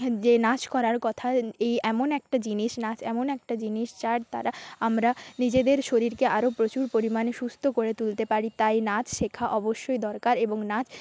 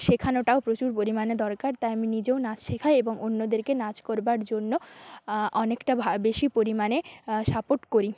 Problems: background sounds at intervals